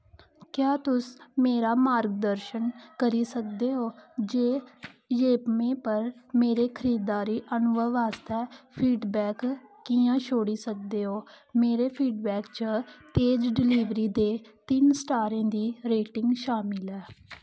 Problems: constant background noise